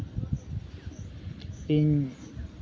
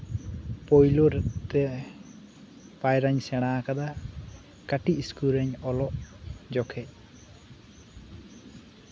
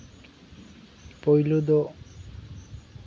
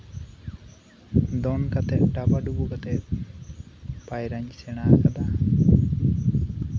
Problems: none marked